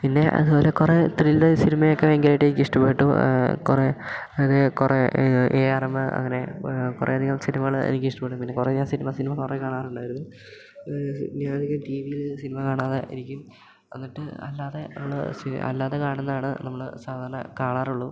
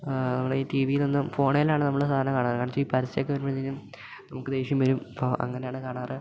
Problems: low volume